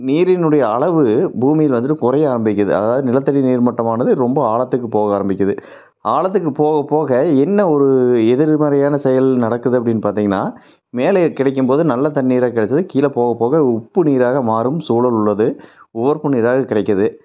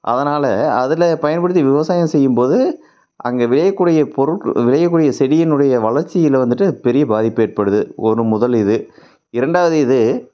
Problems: none marked